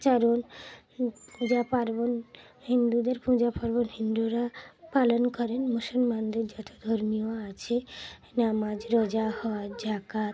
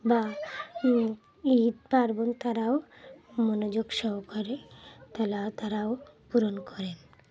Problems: background sounds at intervals, background conversations at intervals